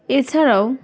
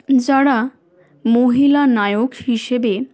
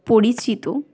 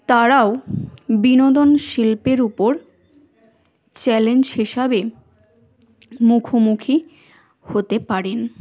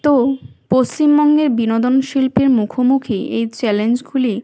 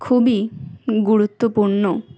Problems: constant background noise, background conversations at intervals